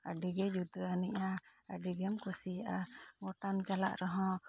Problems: low volume